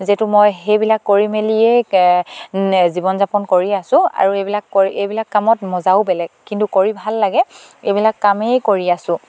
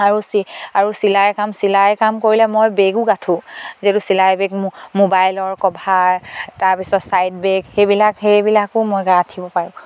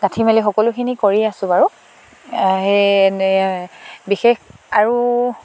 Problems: none marked